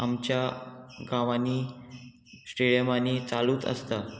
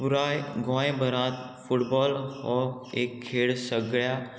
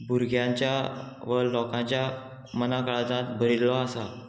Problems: constant background noise, background conversations at intervals